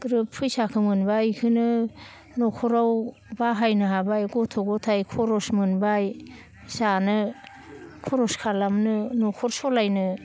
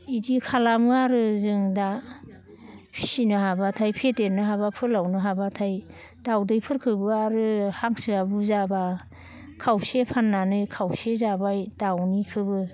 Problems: none marked